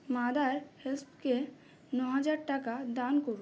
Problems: none marked